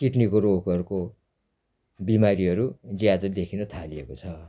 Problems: constant background noise